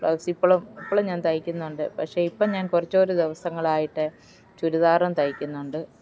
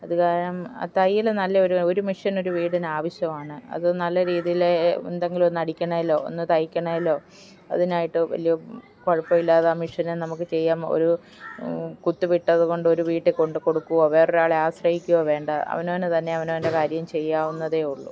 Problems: none marked